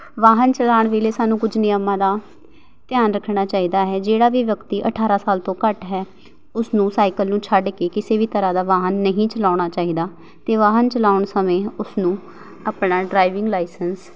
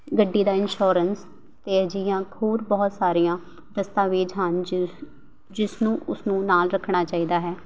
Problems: background sounds at intervals